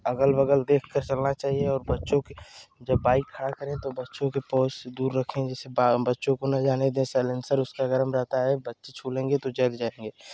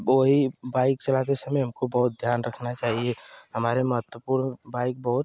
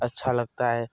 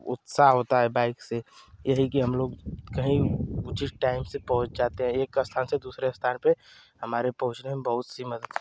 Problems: constant background noise